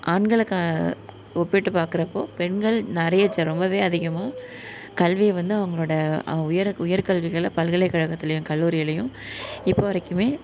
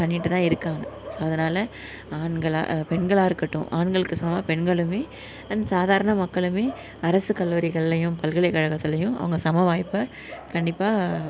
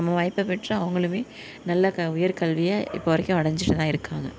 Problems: background sounds at intervals